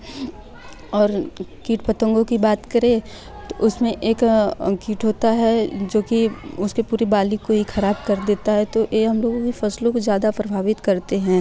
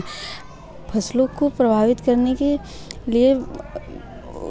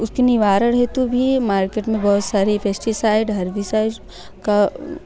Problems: constant background noise